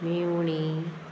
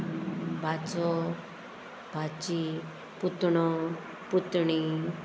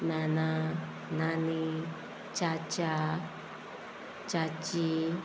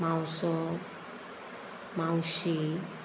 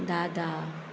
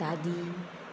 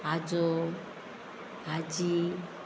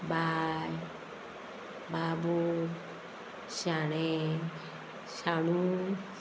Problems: constant background noise